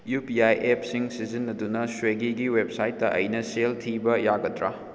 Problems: none marked